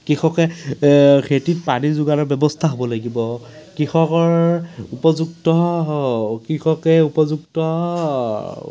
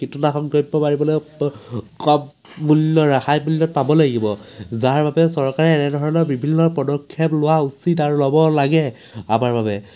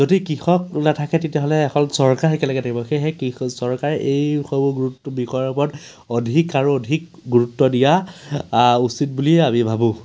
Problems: constant background noise